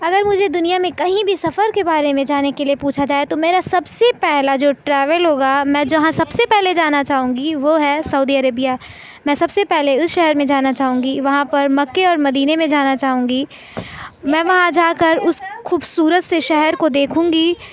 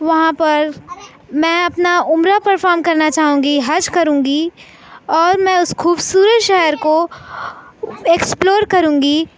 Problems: none marked